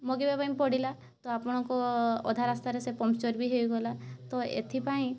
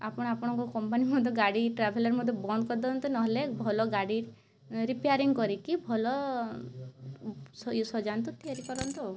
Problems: constant background noise, continuous background conversations